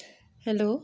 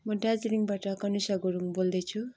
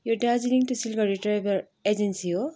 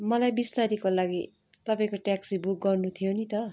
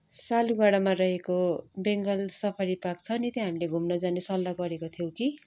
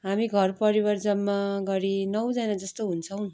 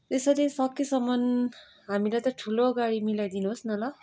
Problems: none marked